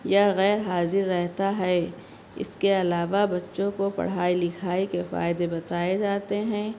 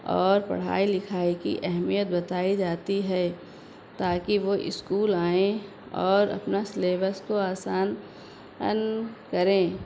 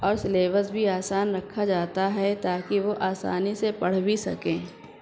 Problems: constant background noise